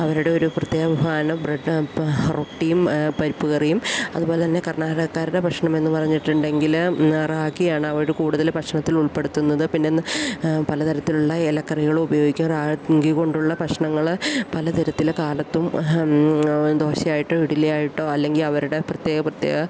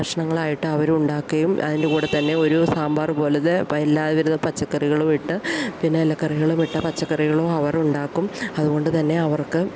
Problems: background sounds at intervals